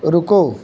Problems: none marked